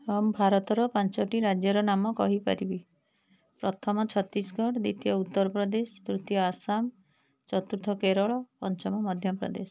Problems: none marked